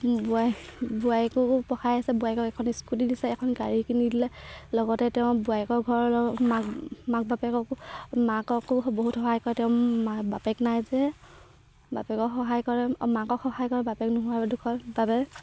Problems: background sounds at intervals